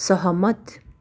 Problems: none marked